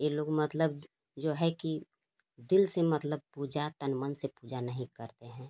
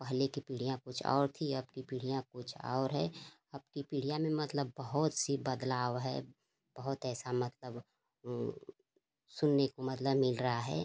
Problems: constant background noise